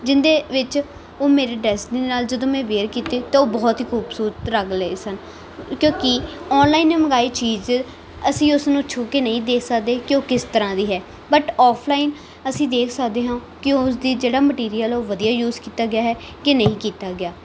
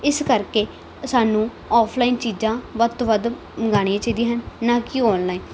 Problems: background sounds at intervals